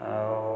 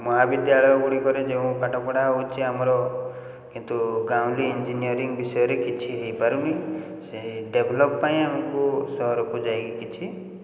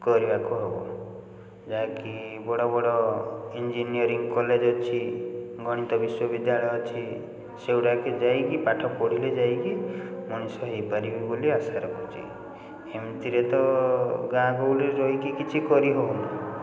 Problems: constant background noise